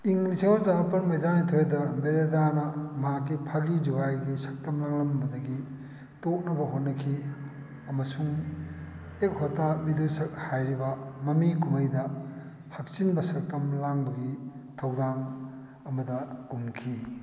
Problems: background sounds at intervals